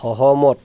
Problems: none marked